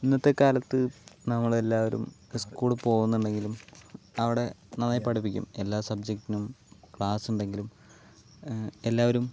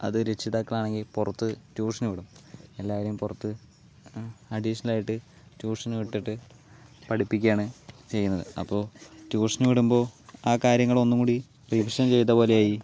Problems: background conversations at intervals